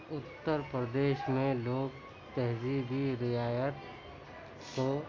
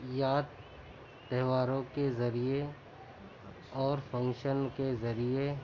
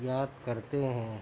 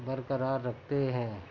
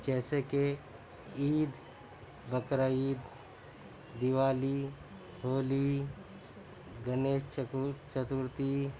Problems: constant background noise, continuous background conversations